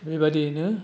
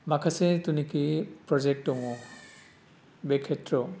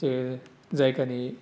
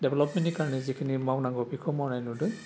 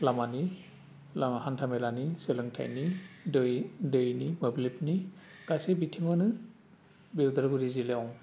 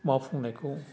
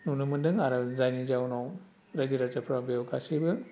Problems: none marked